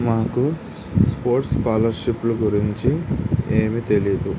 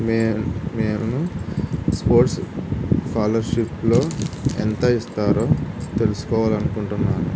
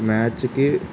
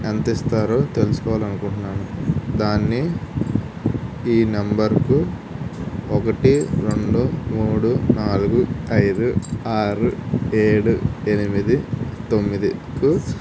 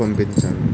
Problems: constant background noise